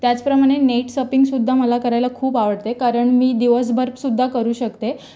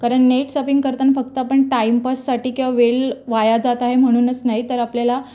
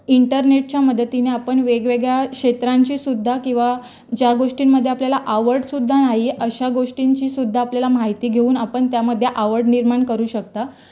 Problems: background sounds at intervals, background conversations at intervals